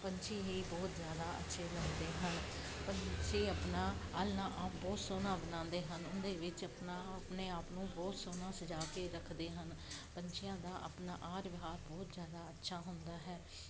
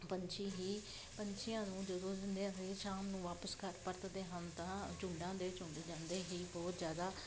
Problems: constant background noise